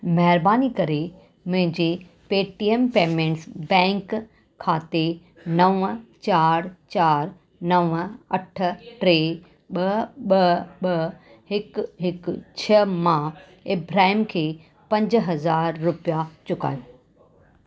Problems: background conversations at intervals